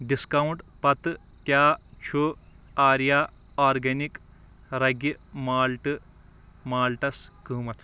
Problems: none marked